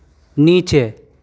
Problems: constant background noise